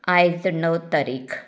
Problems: none marked